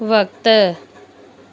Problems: constant background noise